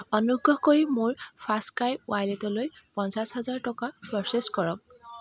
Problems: background sounds at intervals, background conversations at intervals